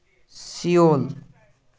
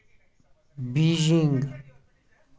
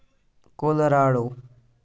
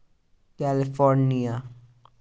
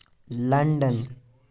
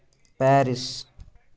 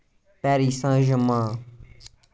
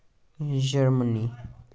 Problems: none marked